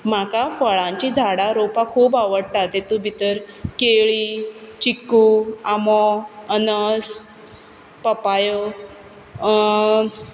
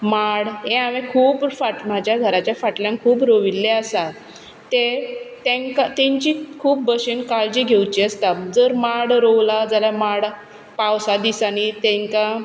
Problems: none marked